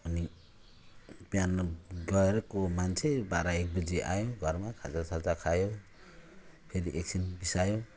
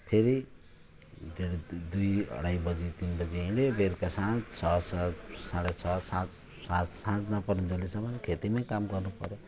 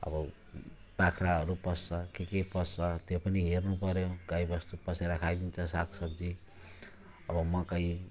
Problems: none marked